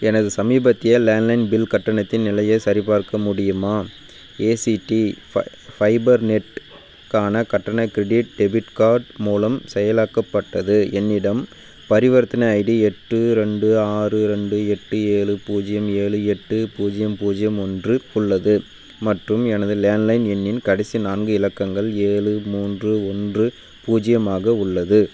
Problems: constant background noise